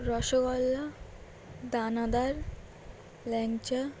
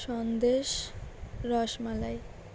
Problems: constant background noise